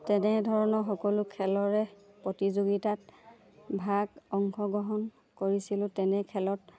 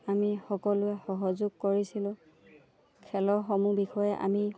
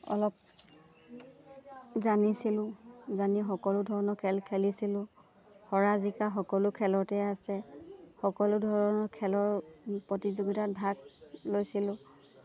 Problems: none marked